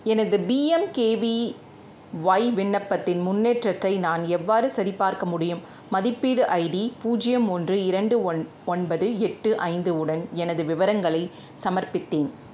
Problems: none marked